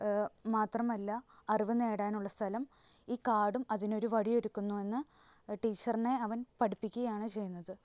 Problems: constant background noise, low volume